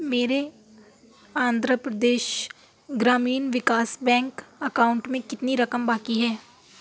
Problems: none marked